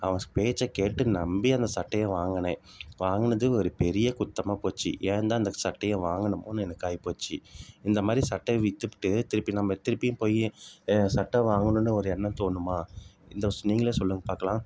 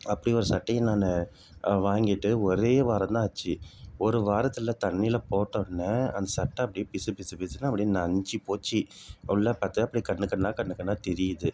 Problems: none marked